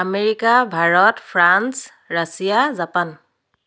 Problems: none marked